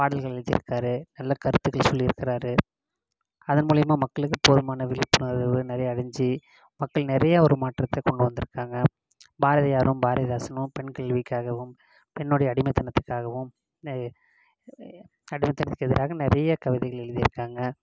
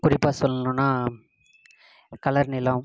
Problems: constant background noise